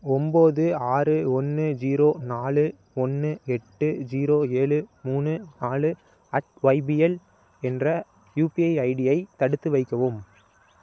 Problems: none marked